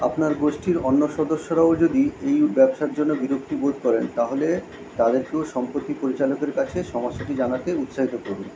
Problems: constant background noise